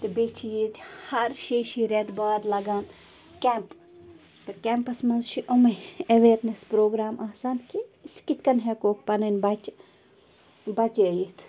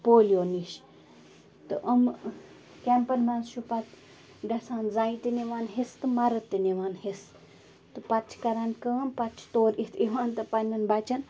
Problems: constant background noise